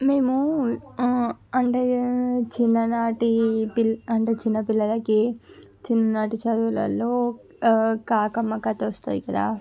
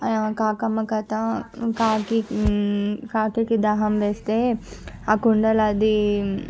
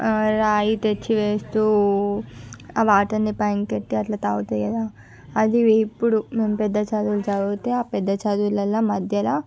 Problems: background sounds at intervals